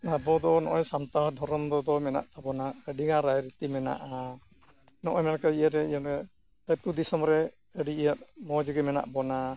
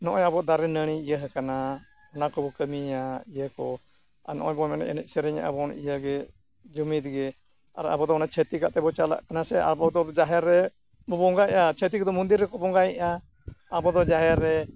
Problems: constant background noise